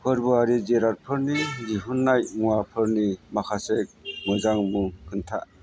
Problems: constant background noise